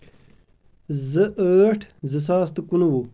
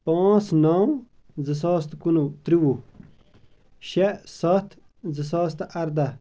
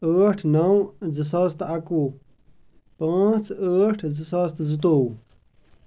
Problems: none marked